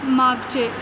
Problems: constant background noise